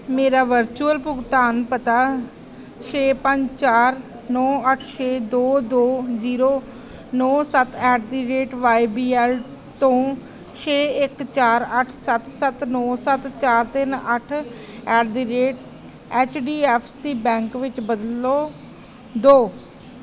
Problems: none marked